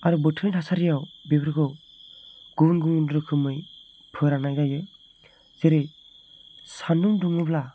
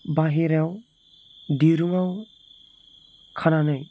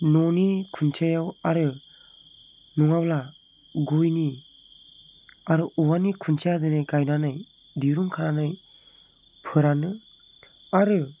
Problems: none marked